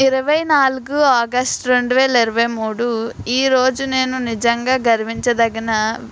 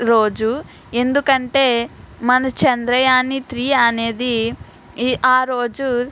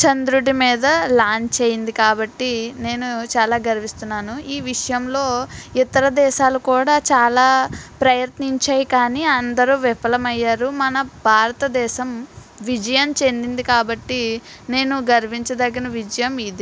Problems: background sounds at intervals